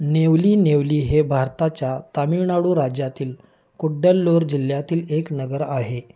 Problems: none marked